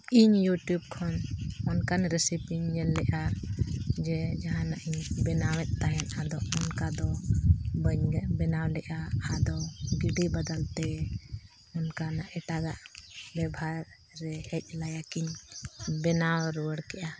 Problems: none marked